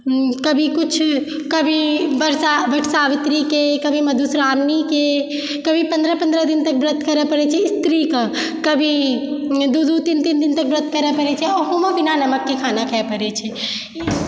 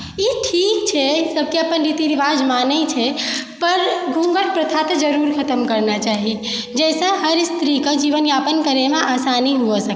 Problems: background sounds at intervals